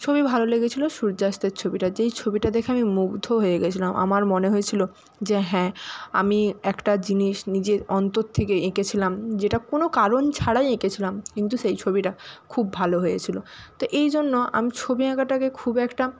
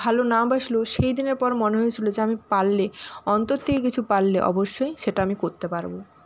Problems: constant background noise